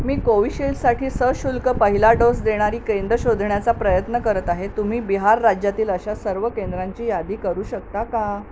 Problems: none marked